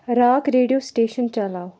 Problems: background sounds at intervals